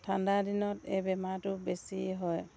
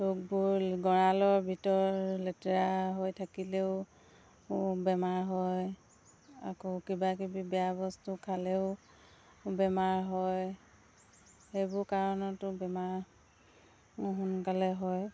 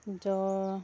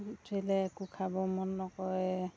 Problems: constant background noise